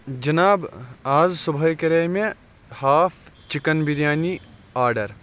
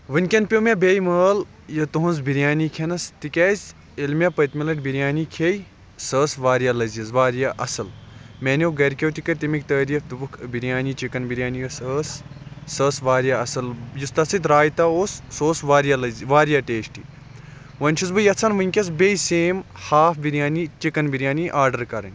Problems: constant background noise